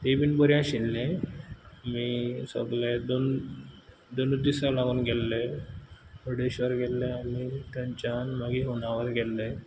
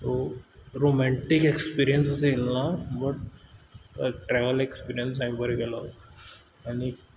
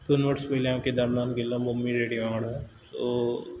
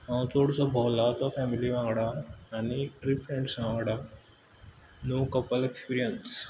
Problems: none marked